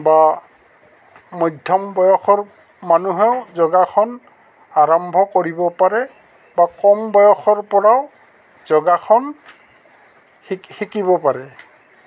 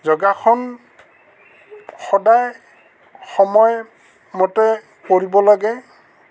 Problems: constant background noise, background conversations at intervals